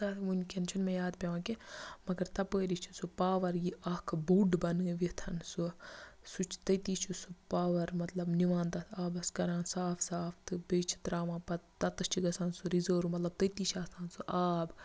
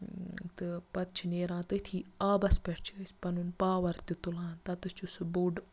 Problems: low volume